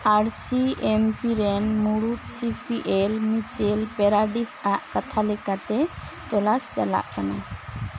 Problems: constant background noise